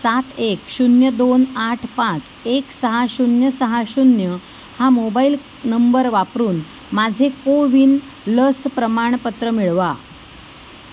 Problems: background sounds at intervals